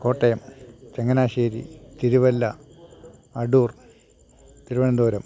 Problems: constant background noise